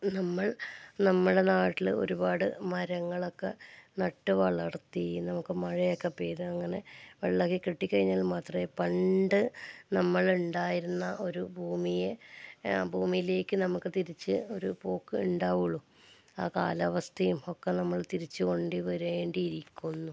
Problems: low volume